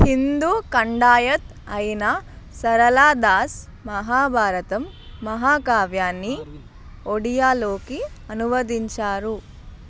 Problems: constant background noise